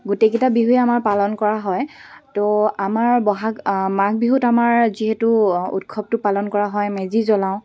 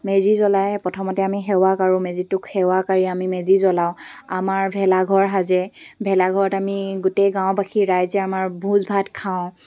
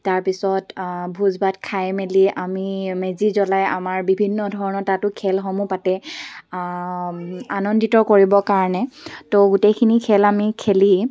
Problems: background sounds at intervals